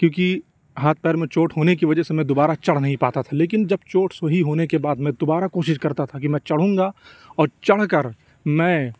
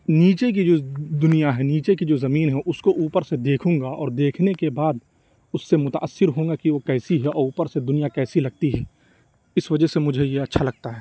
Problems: background sounds at intervals